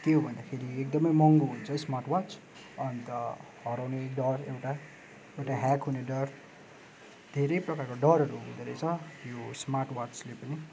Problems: constant background noise